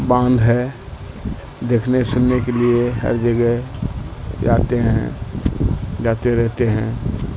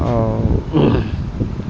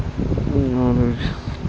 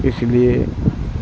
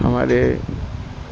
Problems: constant background noise, low volume